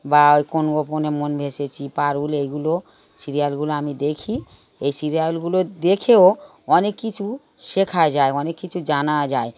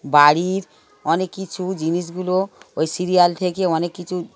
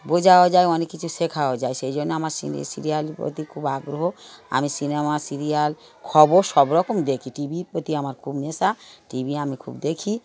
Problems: continuous background conversations